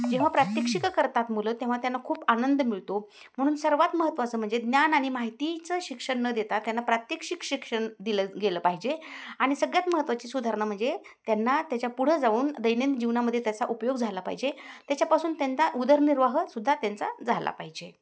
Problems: constant background noise